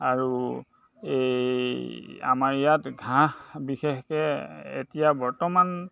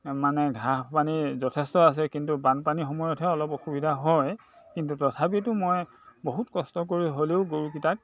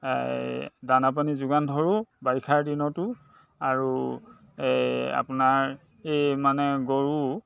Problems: constant background noise, background conversations at intervals